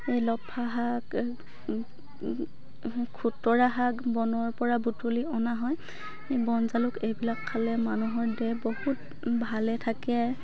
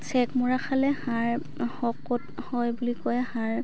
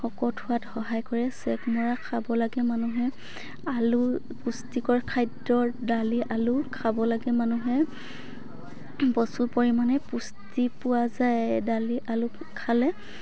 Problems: background conversations at intervals